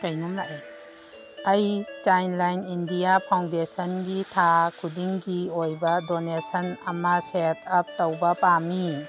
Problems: background sounds at intervals, background conversations at intervals